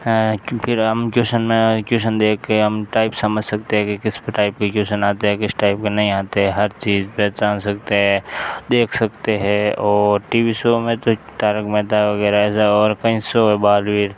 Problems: constant background noise